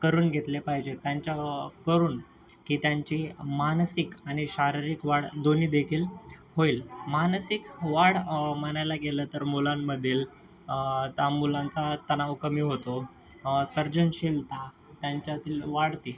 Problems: constant background noise, background conversations at intervals